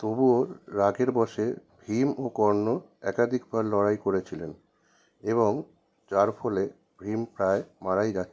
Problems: none marked